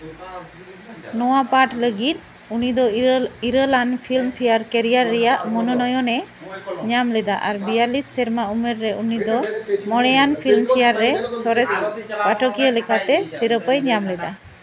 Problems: background conversations at intervals